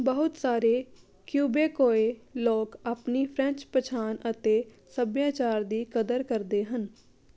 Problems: none marked